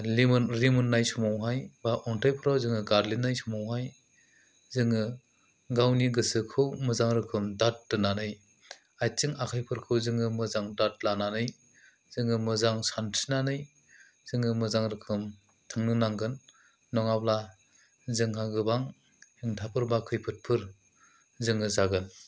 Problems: none marked